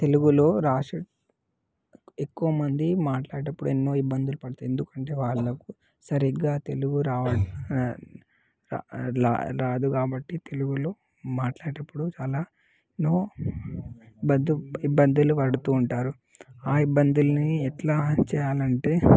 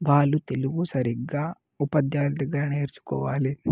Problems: background sounds at intervals